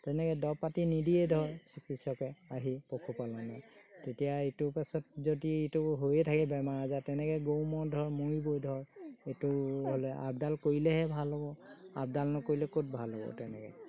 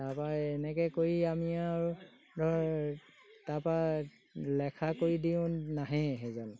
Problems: background sounds at intervals